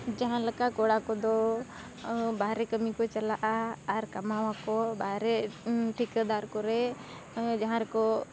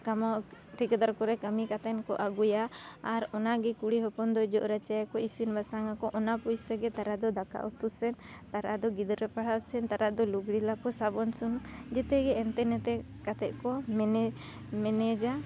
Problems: none marked